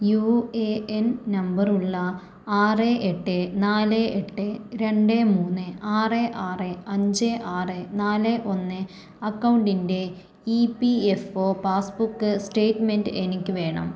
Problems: background sounds at intervals